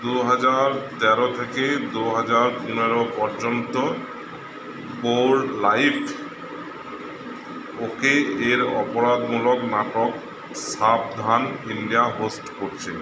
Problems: constant background noise